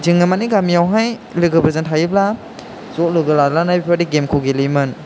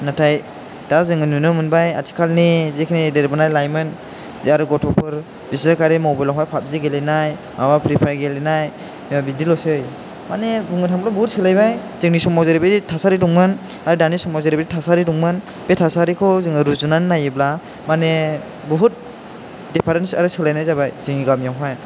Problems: constant background noise